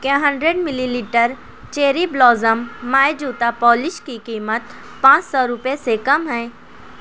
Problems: constant background noise